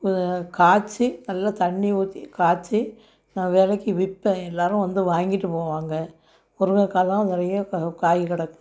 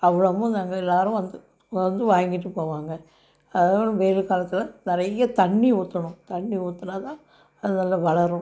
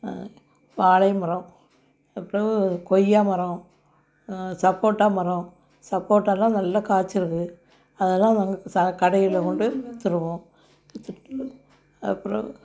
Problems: none marked